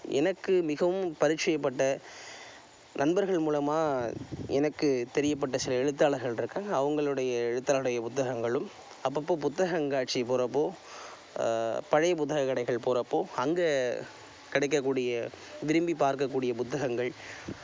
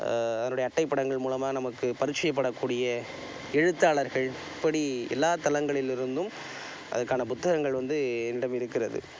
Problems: none marked